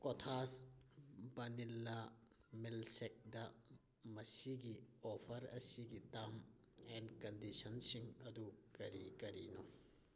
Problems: background sounds at intervals